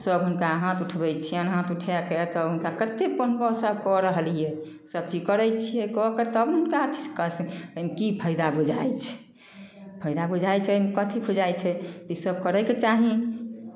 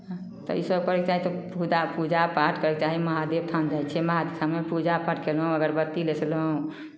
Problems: none marked